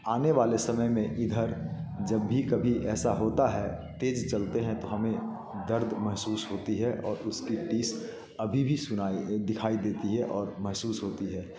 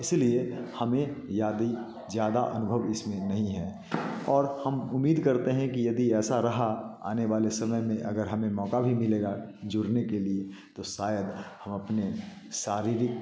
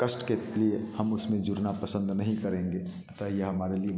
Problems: constant background noise, background conversations at intervals, echo